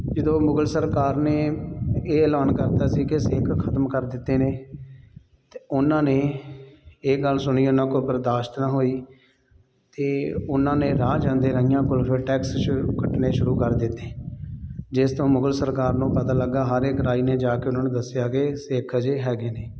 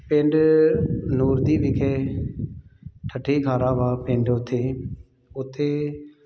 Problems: none marked